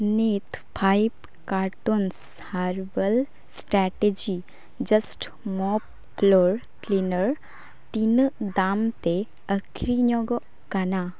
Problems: none marked